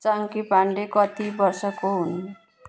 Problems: background sounds at intervals